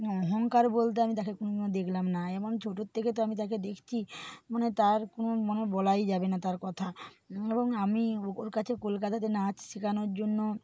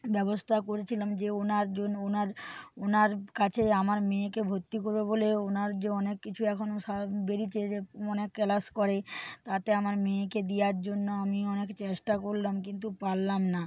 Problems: background sounds at intervals